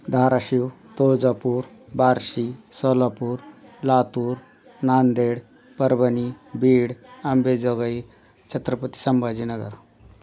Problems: none marked